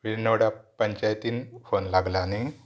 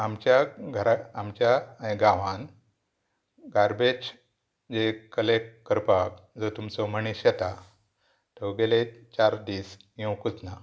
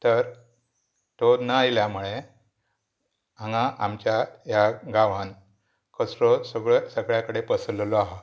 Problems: background sounds at intervals